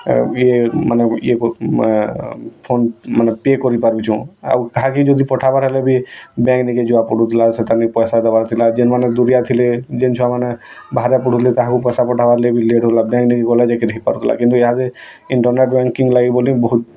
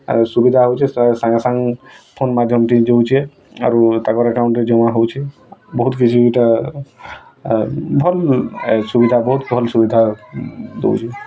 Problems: constant background noise, continuous background conversations